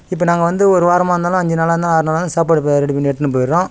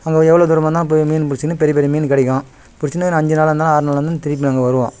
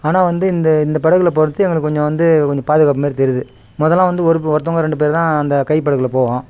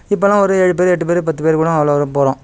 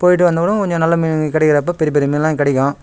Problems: background sounds at intervals